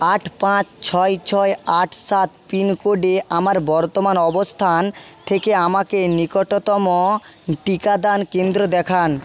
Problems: none marked